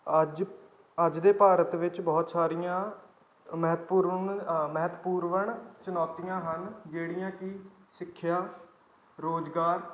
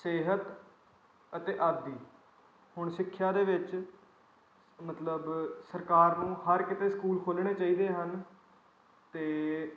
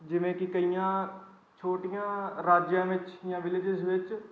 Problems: background sounds at intervals